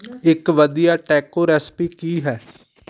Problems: background sounds at intervals, background conversations at intervals